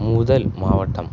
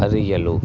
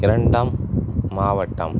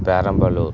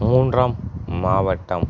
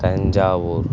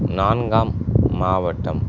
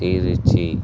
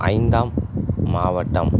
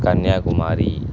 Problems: background sounds at intervals